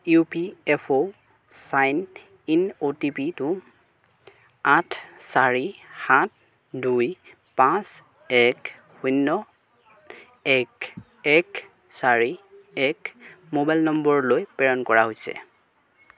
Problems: background conversations at intervals